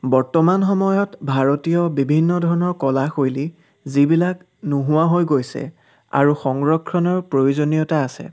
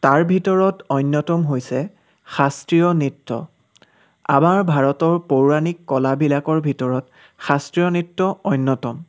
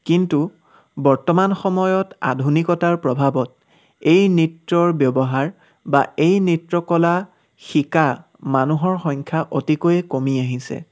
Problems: none marked